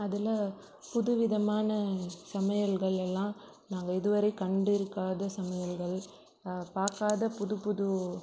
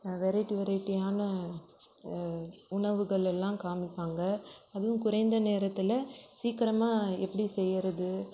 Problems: low volume